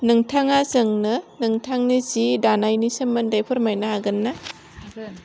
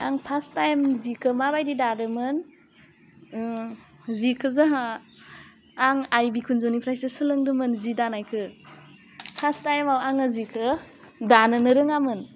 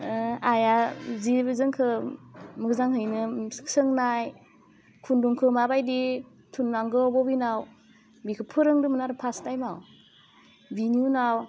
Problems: none marked